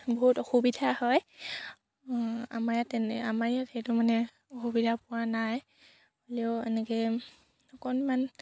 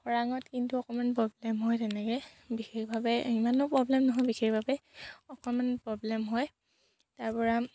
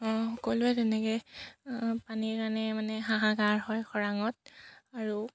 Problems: none marked